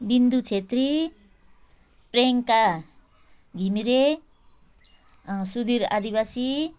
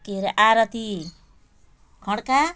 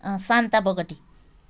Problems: background sounds at intervals